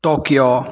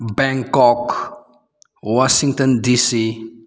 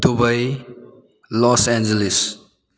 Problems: background conversations at intervals